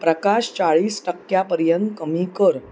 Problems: background sounds at intervals